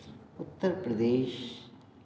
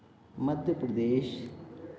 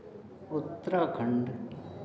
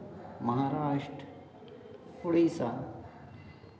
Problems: constant background noise, continuous background conversations